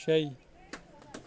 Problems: constant background noise